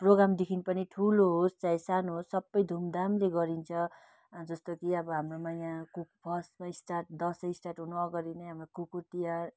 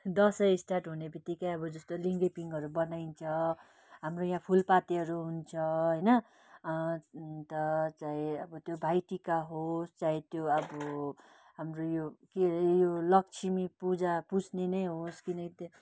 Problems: none marked